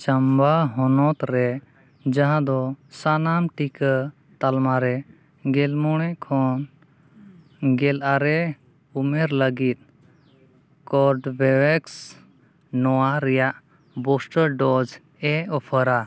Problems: none marked